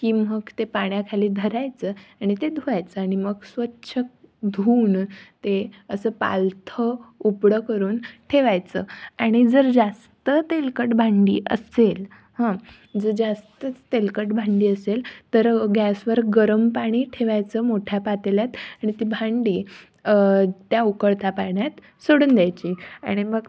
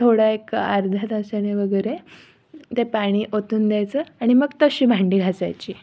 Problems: background sounds at intervals